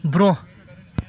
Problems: continuous background conversations